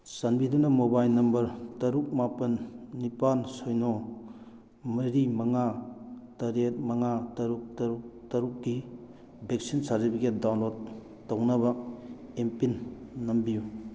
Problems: none marked